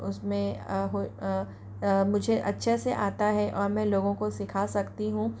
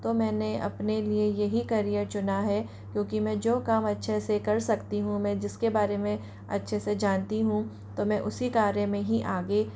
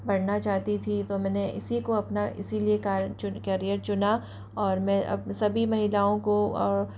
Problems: constant background noise